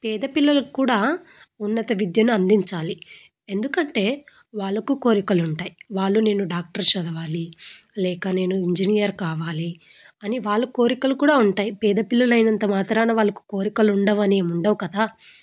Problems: none marked